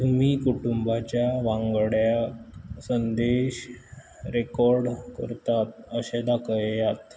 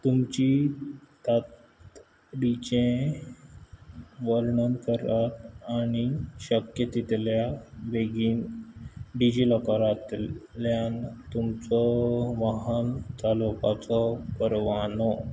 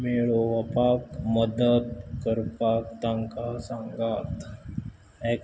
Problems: background sounds at intervals